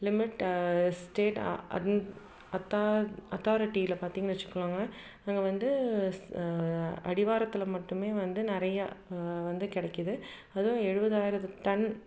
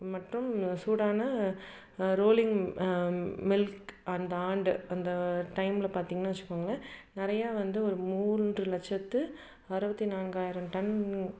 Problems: none marked